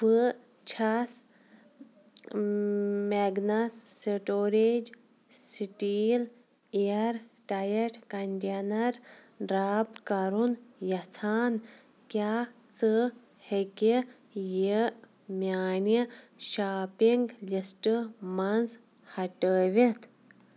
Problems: background sounds at intervals